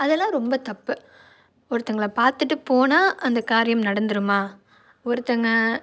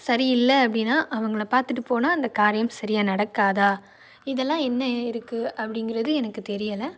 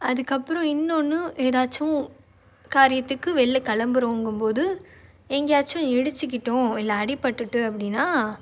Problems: none marked